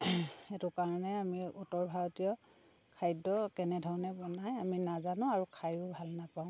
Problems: none marked